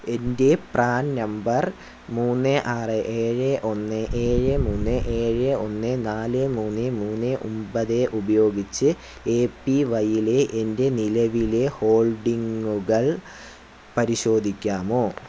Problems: background sounds at intervals